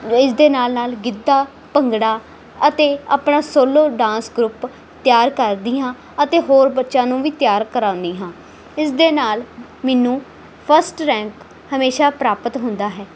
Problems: background sounds at intervals